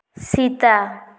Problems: echo